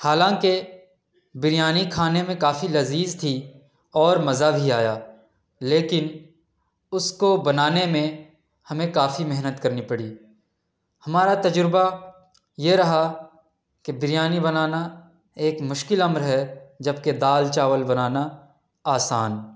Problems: none marked